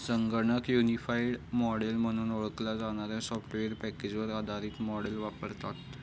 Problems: none marked